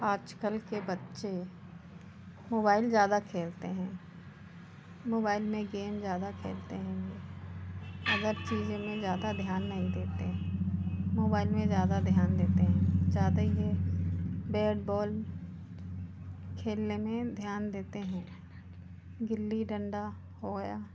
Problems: constant background noise